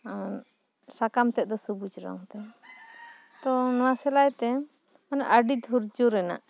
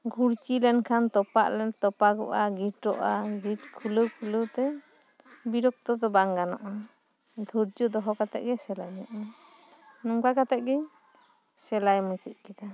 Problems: background sounds at intervals